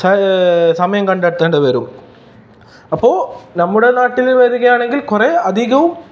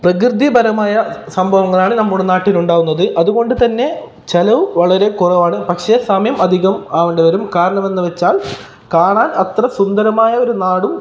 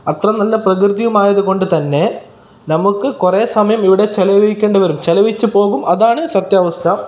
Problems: none marked